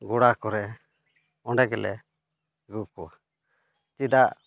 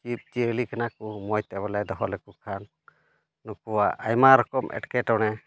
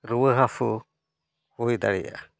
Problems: none marked